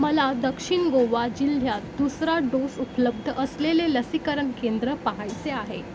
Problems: constant background noise